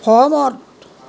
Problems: constant background noise